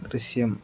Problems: none marked